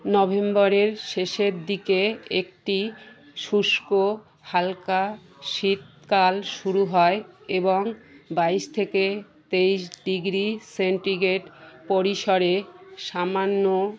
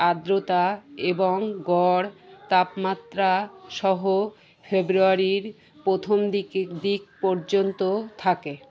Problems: constant background noise, background conversations at intervals